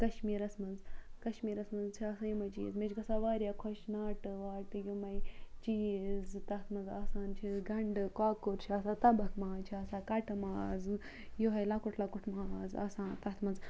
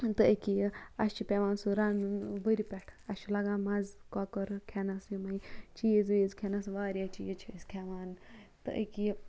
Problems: background sounds at intervals